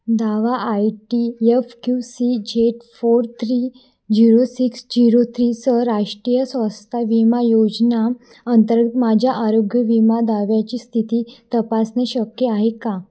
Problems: none marked